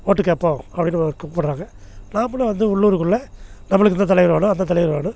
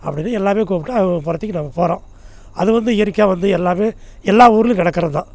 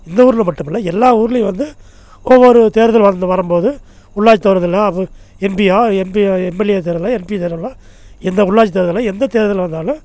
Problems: none marked